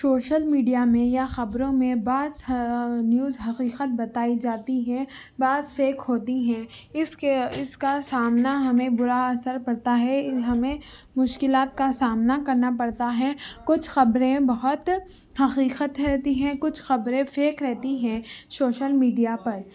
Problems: background conversations at intervals